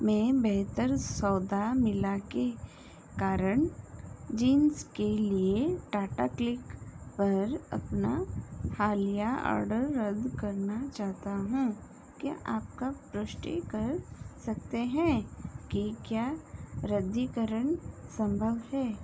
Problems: constant background noise